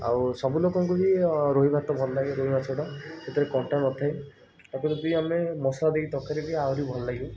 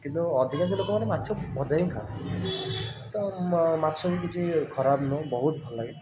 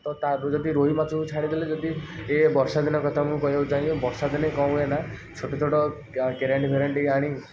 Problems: none marked